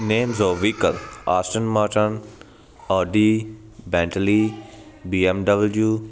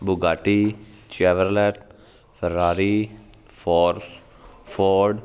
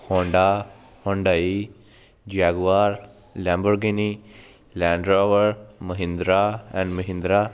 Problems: constant background noise